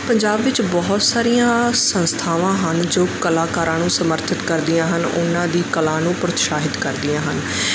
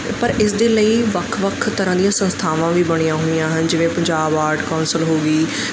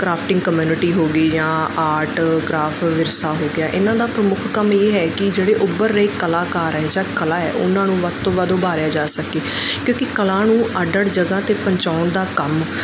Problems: none marked